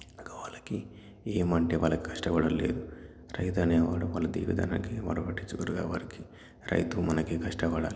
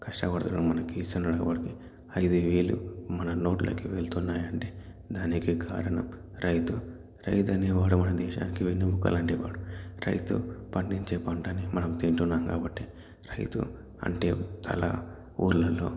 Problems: none marked